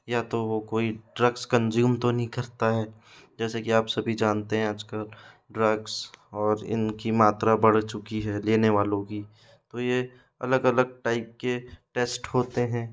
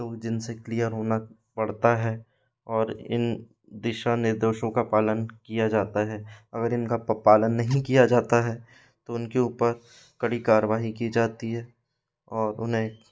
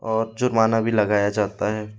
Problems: constant background noise